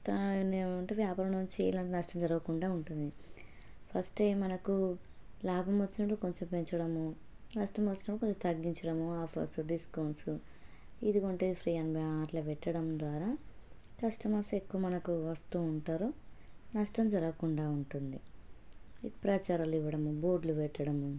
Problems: low volume